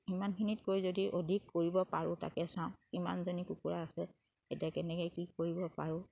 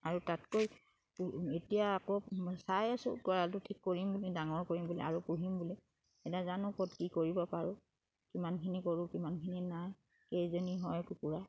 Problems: background sounds at intervals